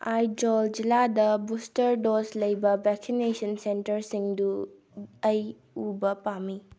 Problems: none marked